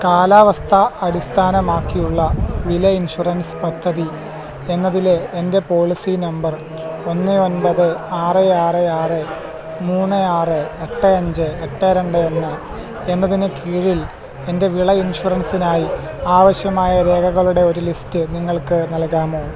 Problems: constant background noise, low volume